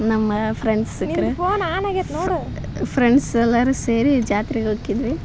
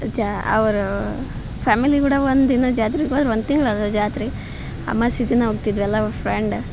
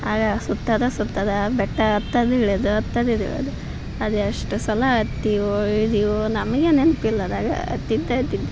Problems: background sounds at intervals